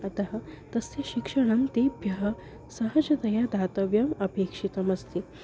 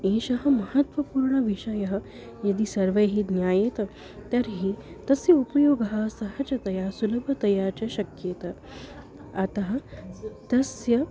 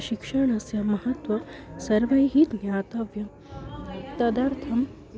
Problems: constant background noise, continuous background conversations